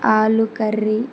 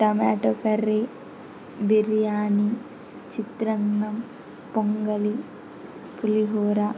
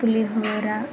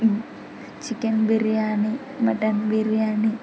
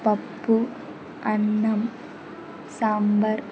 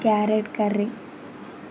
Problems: constant background noise